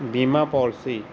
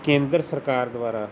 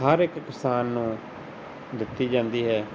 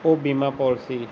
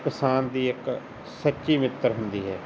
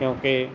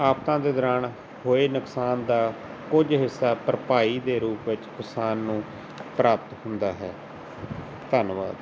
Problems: constant background noise